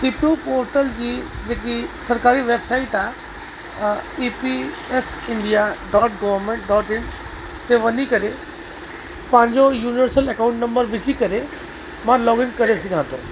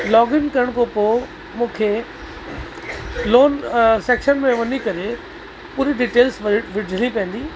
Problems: constant background noise, echo